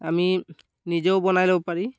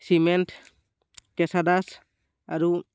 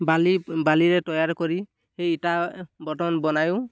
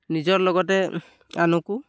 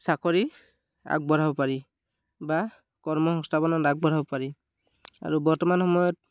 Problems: none marked